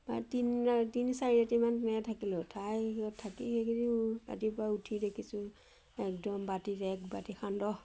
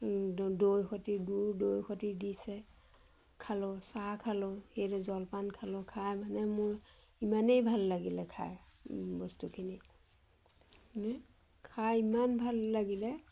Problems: none marked